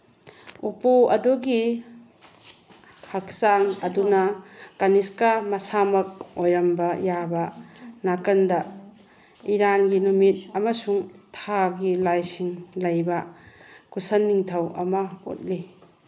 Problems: background conversations at intervals